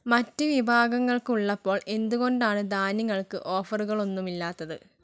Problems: none marked